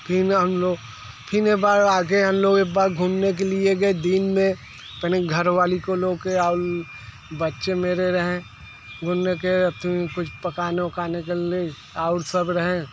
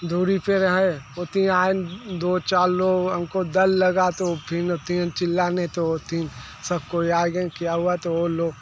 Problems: constant background noise